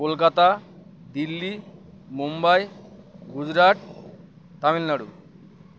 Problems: constant background noise